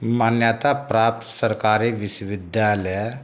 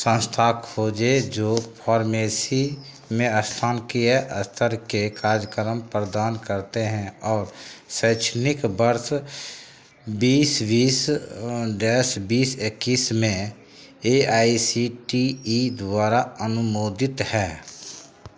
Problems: none marked